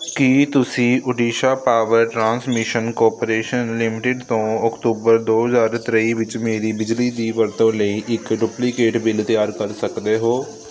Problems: constant background noise